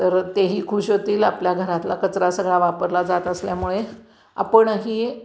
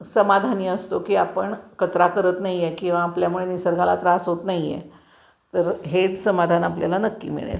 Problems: background sounds at intervals